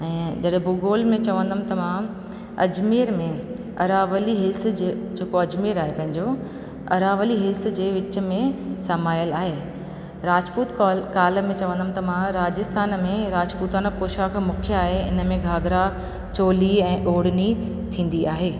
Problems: constant background noise, echo